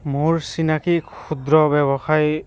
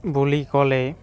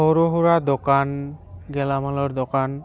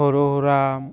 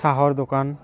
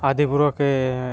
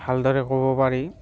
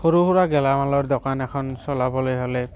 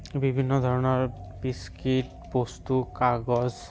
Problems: background sounds at intervals